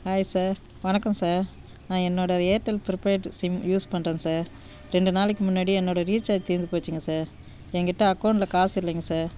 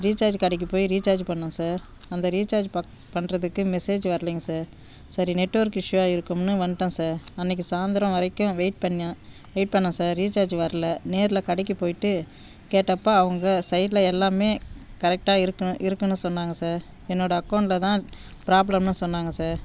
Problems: none marked